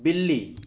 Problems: background sounds at intervals